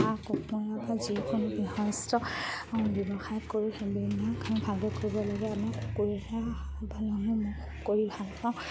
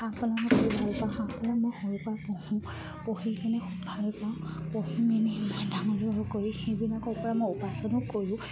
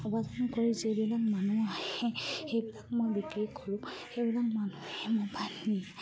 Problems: low volume